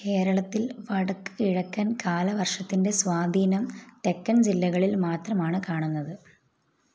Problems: constant background noise, low volume